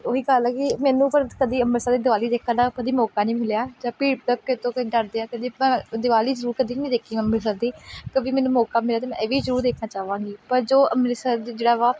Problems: background sounds at intervals